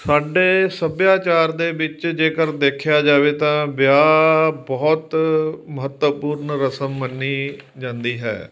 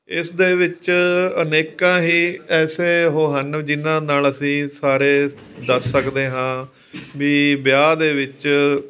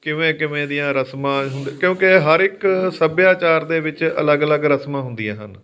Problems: background sounds at intervals, background conversations at intervals